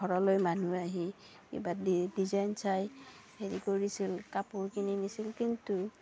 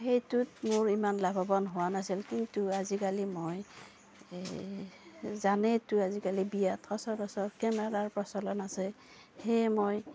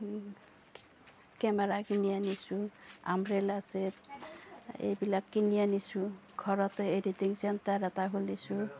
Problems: none marked